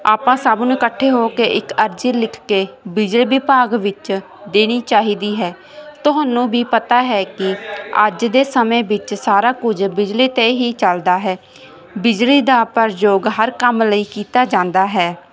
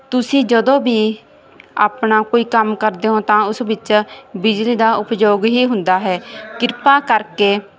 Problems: background sounds at intervals